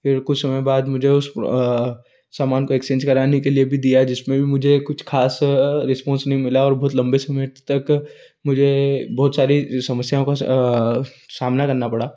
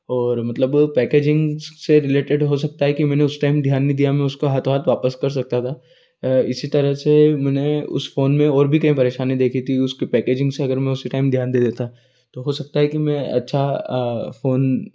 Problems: none marked